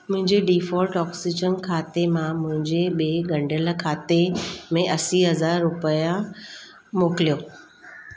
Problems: constant background noise